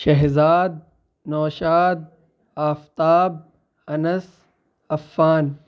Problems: none marked